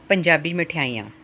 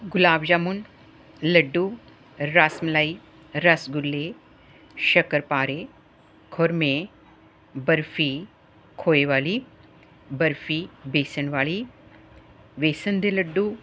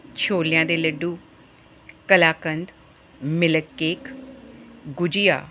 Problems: none marked